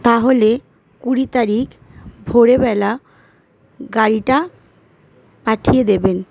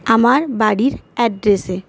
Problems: none marked